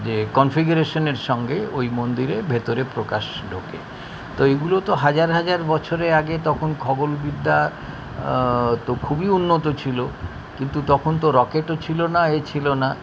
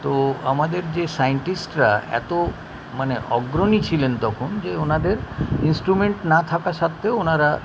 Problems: constant background noise, continuous background conversations